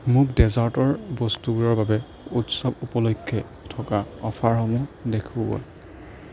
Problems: none marked